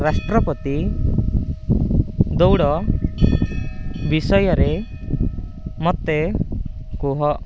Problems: constant background noise